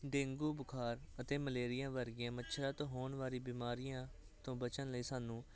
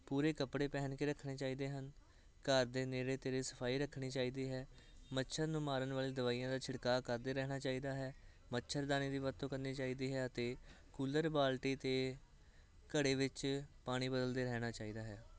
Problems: none marked